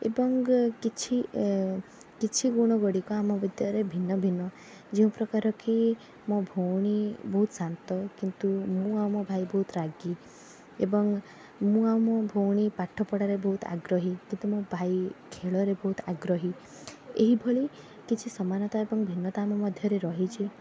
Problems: background sounds at intervals